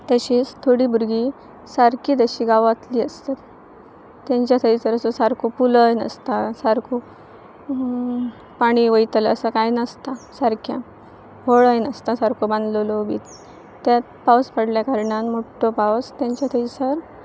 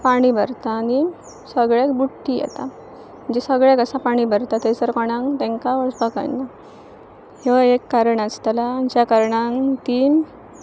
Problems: constant background noise, continuous background conversations